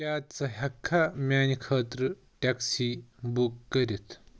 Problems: background sounds at intervals